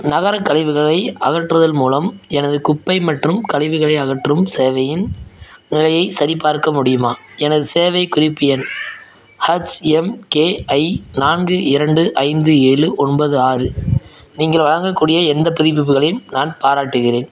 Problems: background sounds at intervals, background conversations at intervals